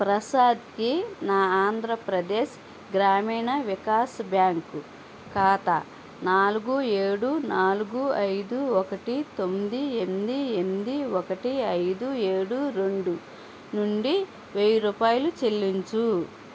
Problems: constant background noise